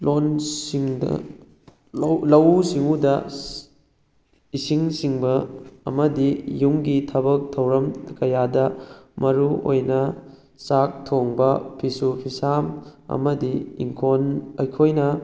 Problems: background conversations at intervals